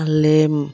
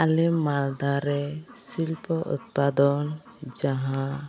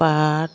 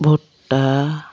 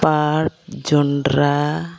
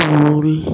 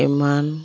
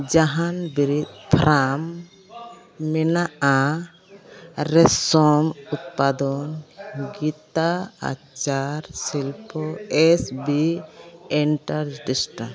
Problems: constant background noise, continuous background conversations